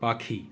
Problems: none marked